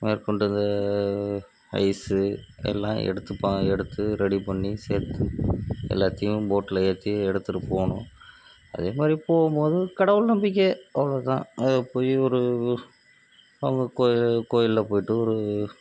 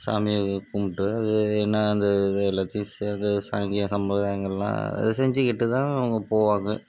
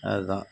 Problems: constant background noise, low volume